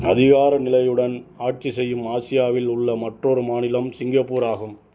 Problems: none marked